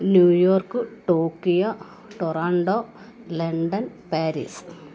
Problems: none marked